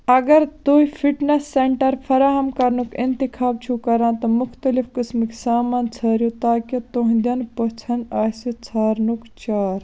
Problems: none marked